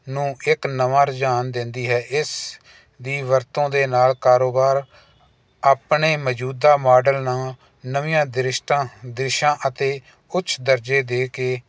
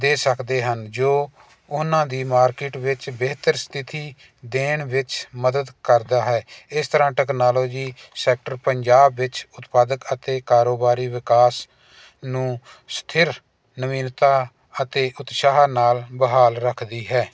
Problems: constant background noise